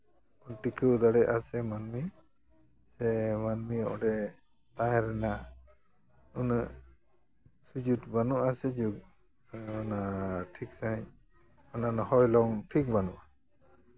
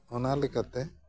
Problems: background sounds at intervals